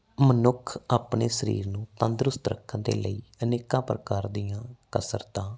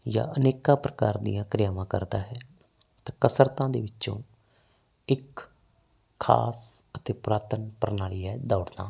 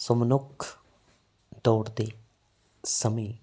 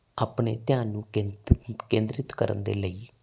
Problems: background sounds at intervals